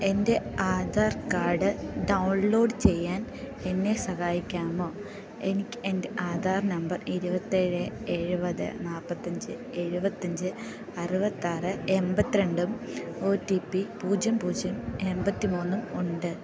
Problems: none marked